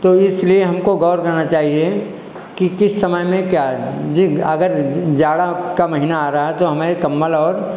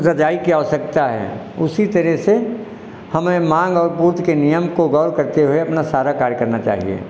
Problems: echo